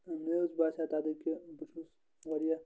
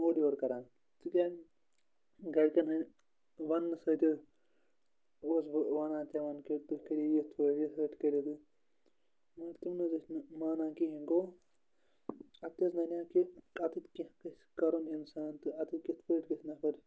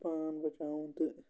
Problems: none marked